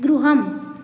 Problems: none marked